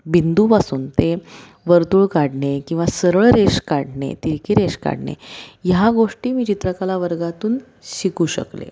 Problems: constant background noise